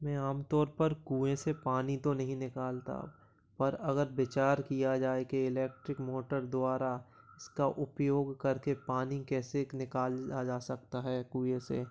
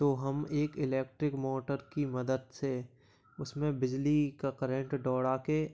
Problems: background sounds at intervals, low volume